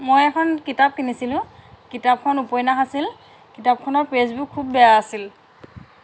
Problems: constant background noise